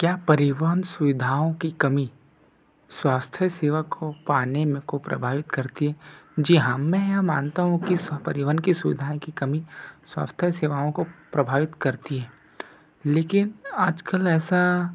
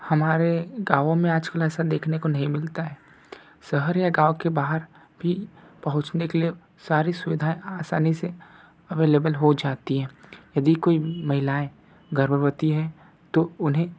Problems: background sounds at intervals